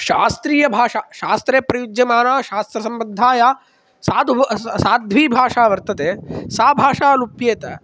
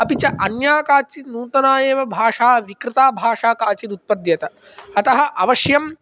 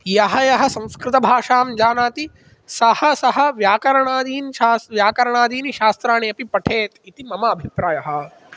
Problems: none marked